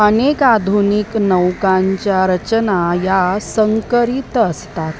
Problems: constant background noise